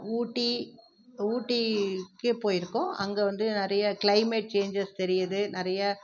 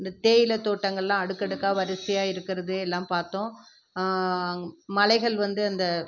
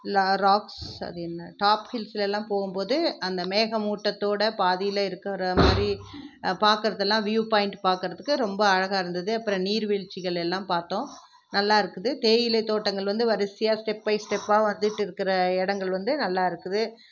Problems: background sounds at intervals